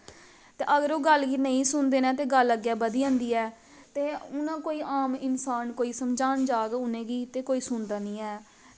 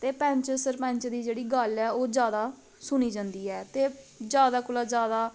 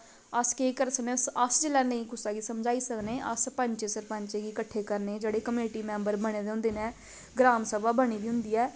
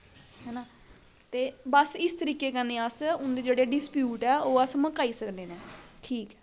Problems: none marked